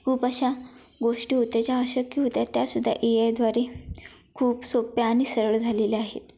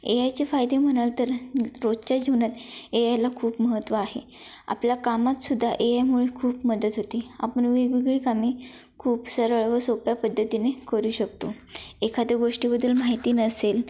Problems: background sounds at intervals